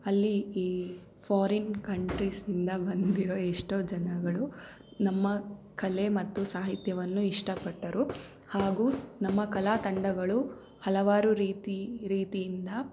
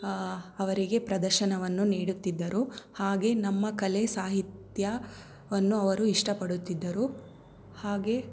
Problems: background sounds at intervals